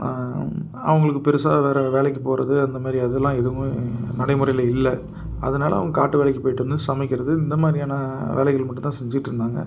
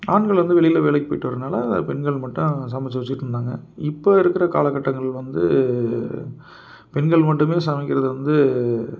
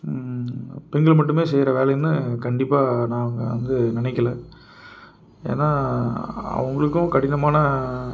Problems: none marked